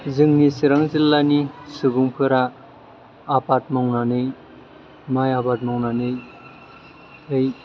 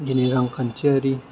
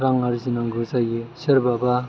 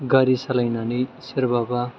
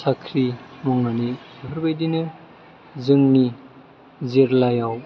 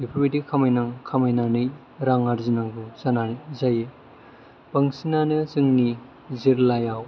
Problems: low volume